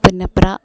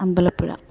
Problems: none marked